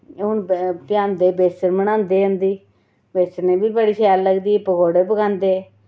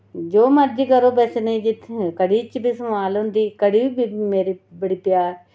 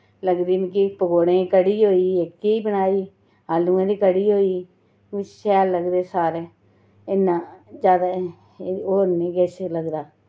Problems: none marked